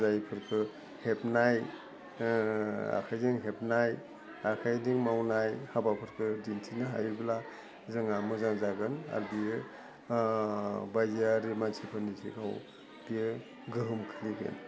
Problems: low volume